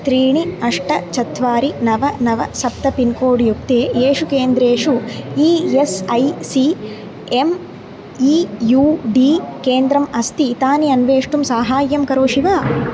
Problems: constant background noise